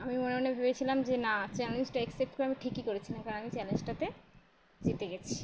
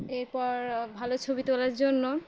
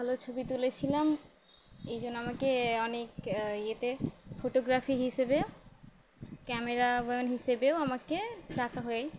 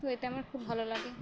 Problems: none marked